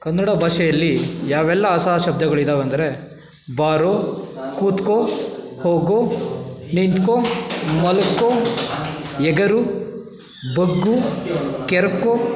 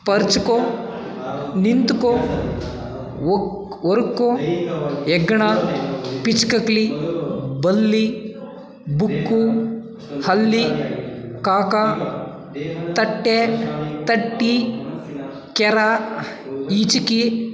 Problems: background conversations at intervals